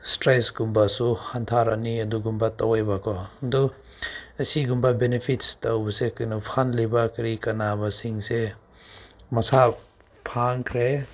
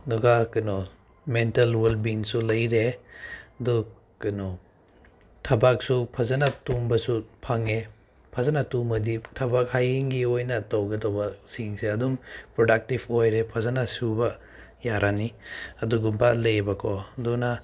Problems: none marked